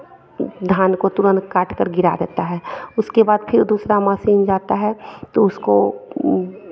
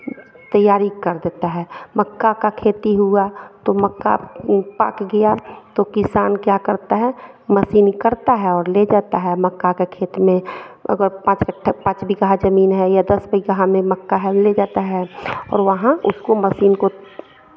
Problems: none marked